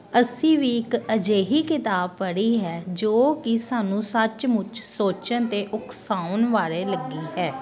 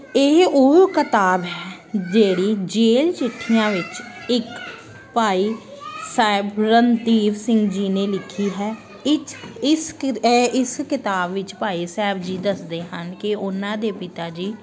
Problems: constant background noise